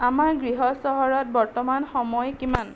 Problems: constant background noise